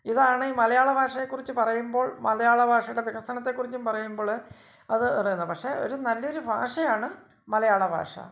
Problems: none marked